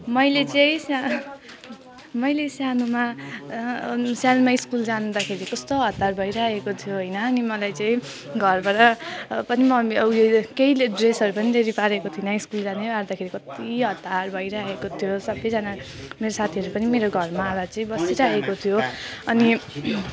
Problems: continuous background conversations